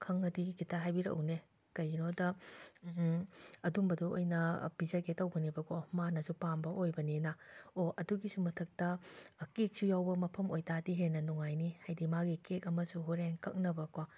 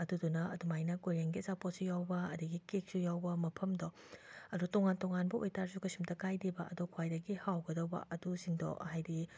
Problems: none marked